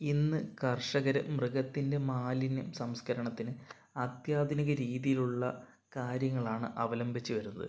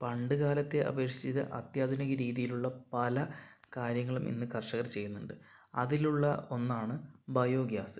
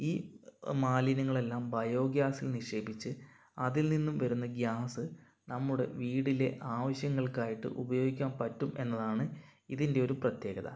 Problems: none marked